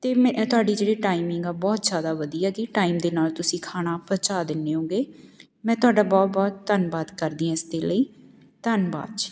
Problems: background sounds at intervals